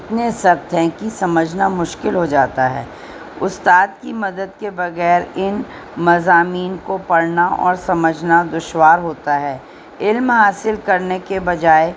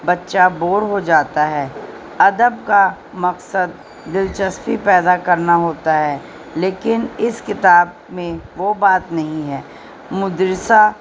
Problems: constant background noise